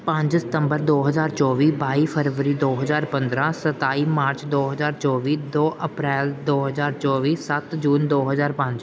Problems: background sounds at intervals